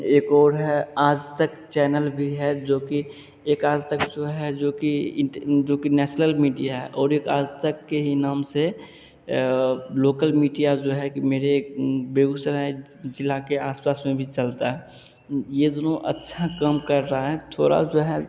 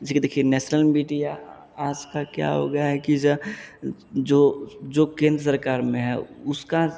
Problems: none marked